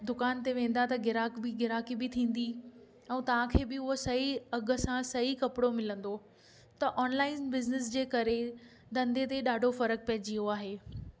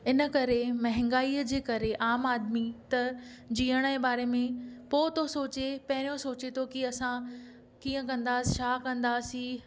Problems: background sounds at intervals